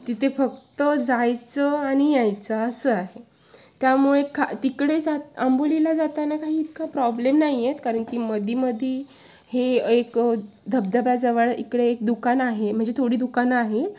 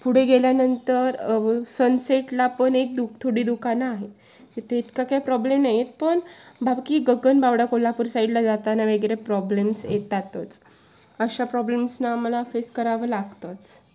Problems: constant background noise